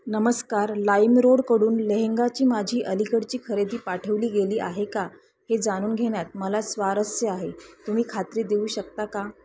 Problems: constant background noise, continuous background conversations